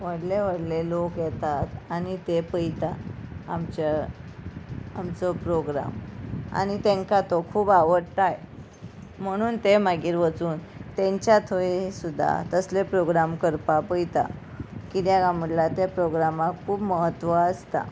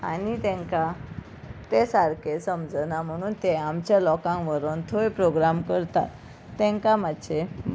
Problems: background sounds at intervals, background conversations at intervals